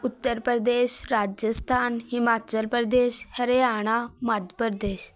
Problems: background conversations at intervals